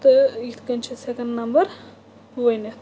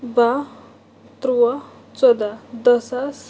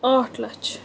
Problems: constant background noise